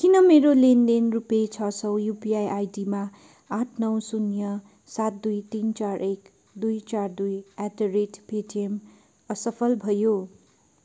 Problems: none marked